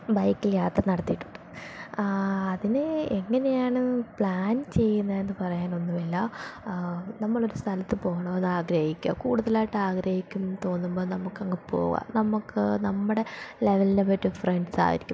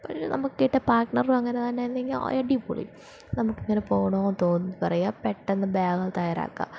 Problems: none marked